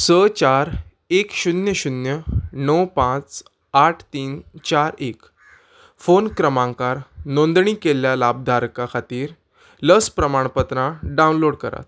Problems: none marked